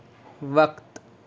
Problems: constant background noise